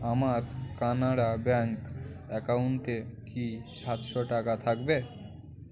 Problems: constant background noise, continuous background conversations